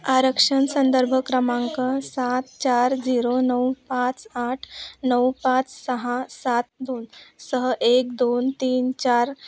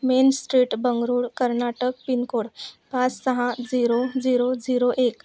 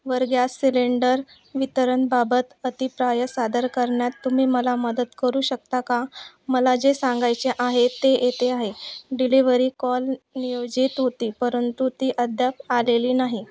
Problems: background sounds at intervals, background conversations at intervals